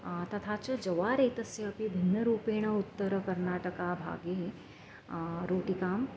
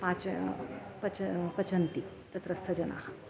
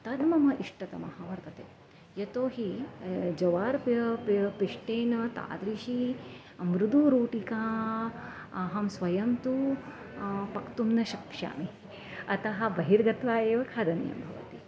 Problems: background sounds at intervals, background conversations at intervals